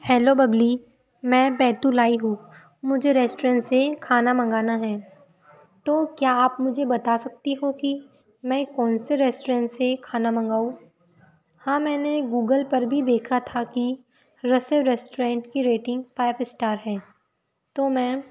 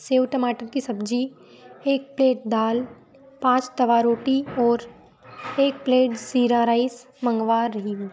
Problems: constant background noise